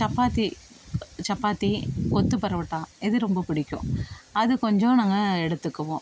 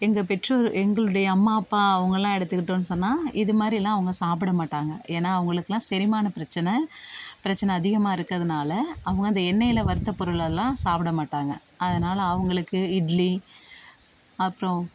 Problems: constant background noise